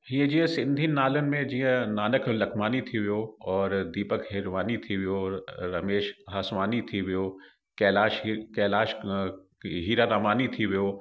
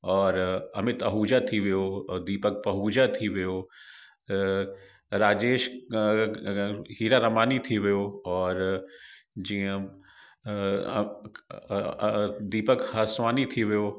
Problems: background sounds at intervals, echo